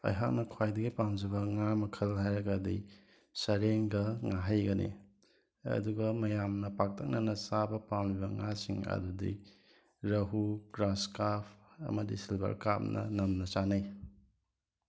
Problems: background sounds at intervals